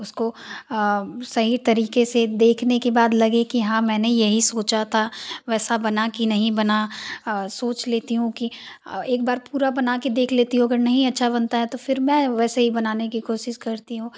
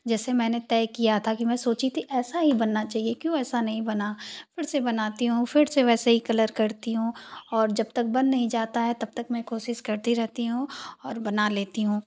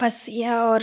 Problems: constant background noise